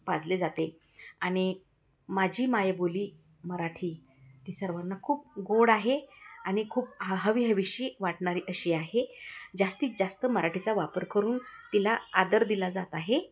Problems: constant background noise, continuous background conversations